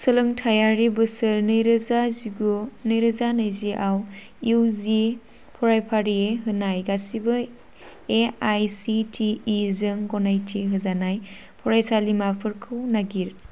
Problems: constant background noise